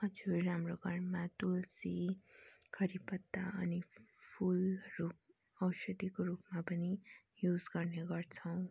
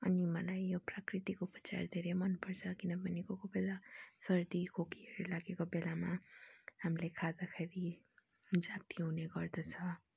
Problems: none marked